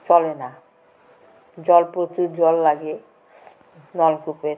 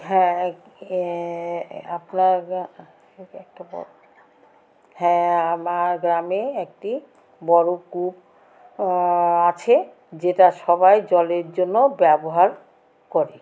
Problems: constant background noise, background conversations at intervals